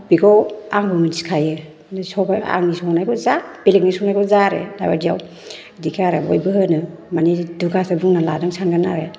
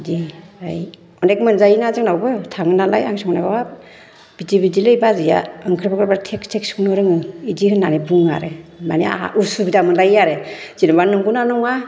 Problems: none marked